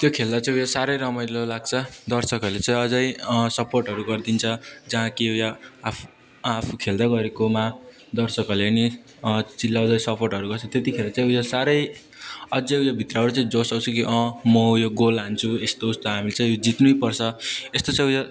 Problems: background conversations at intervals